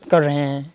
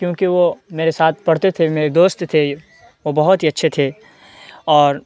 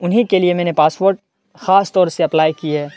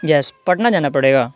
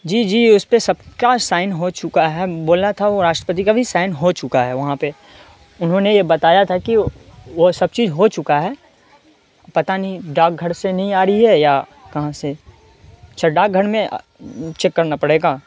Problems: background sounds at intervals, background conversations at intervals